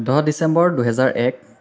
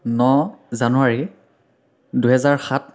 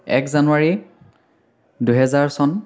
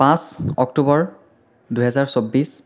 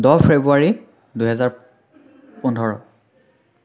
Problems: none marked